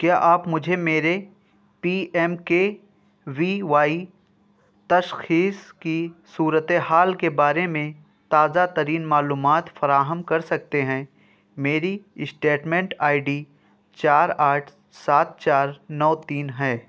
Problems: background sounds at intervals